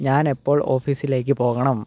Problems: low volume